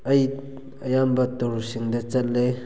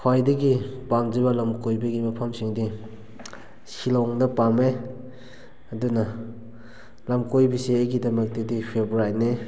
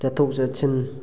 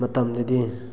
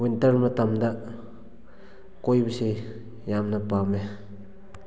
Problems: background conversations at intervals